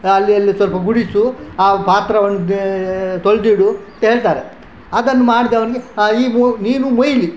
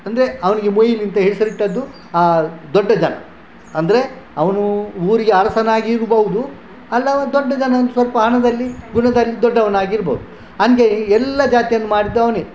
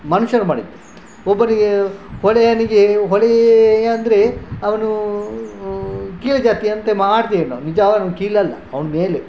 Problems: background sounds at intervals, background conversations at intervals